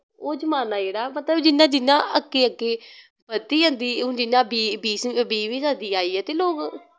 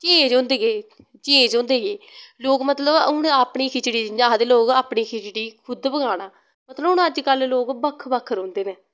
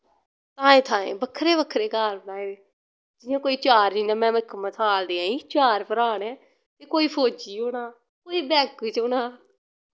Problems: none marked